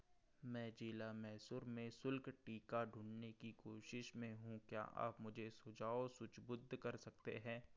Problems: background sounds at intervals